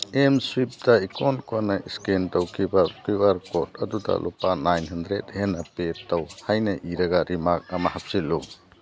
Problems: none marked